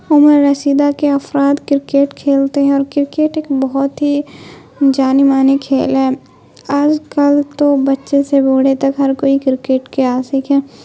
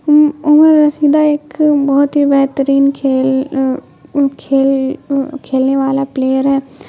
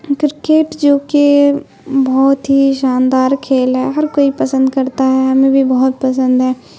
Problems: constant background noise